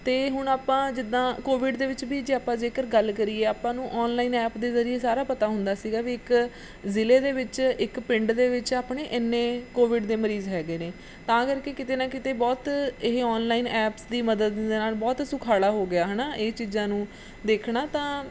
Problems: background sounds at intervals